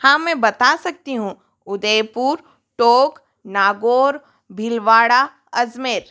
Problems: background sounds at intervals